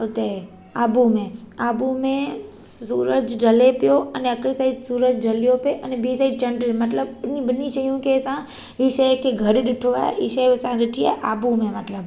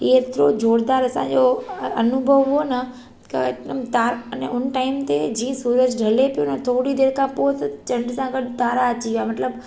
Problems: background sounds at intervals, echo